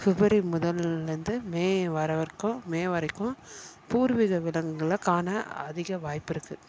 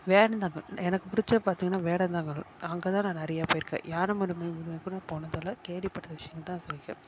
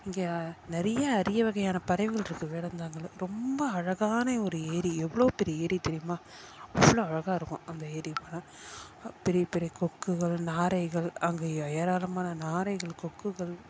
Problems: background sounds at intervals